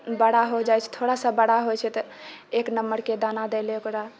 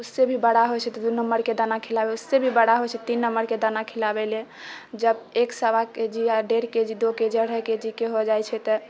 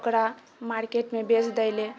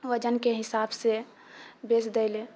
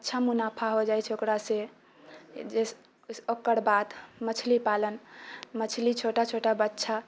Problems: none marked